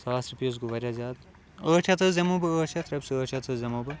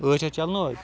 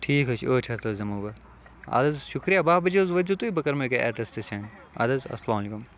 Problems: constant background noise